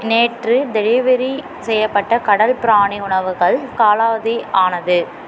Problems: none marked